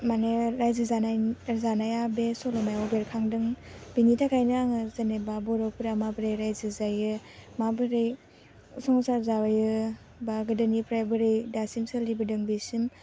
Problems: none marked